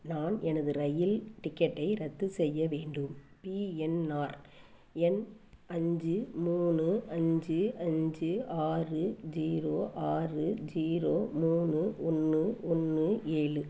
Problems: background sounds at intervals